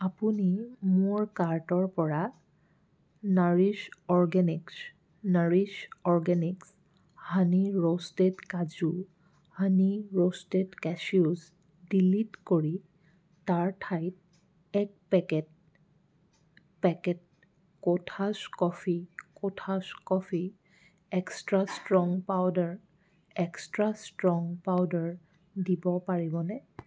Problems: background sounds at intervals